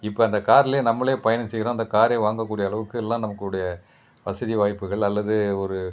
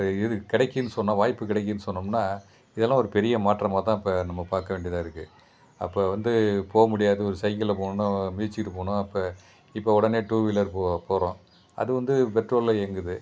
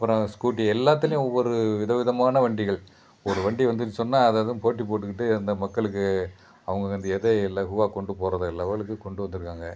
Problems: constant background noise